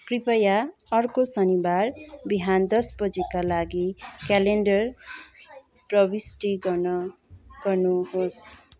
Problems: continuous background conversations